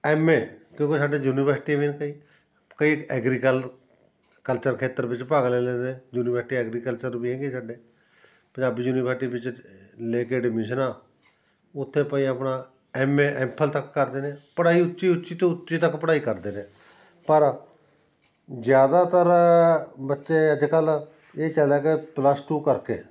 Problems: background sounds at intervals